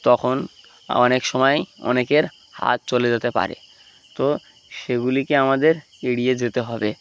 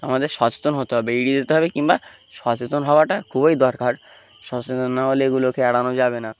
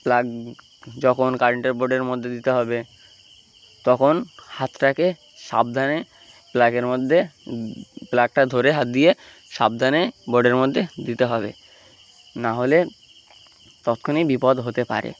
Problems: constant background noise